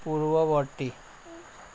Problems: background sounds at intervals